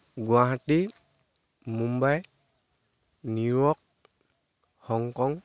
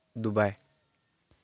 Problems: constant background noise